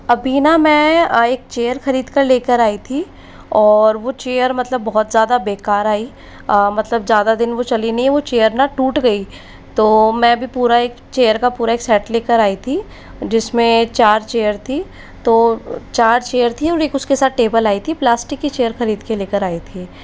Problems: constant background noise